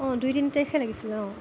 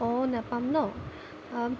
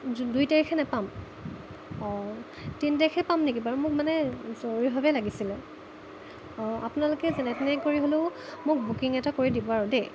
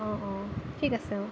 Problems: constant background noise